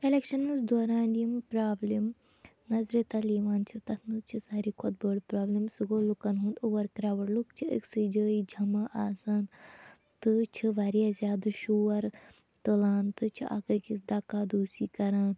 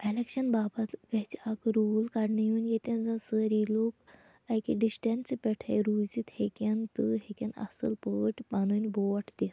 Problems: none marked